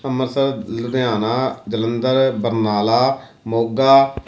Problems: none marked